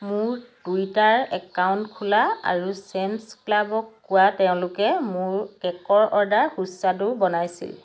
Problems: constant background noise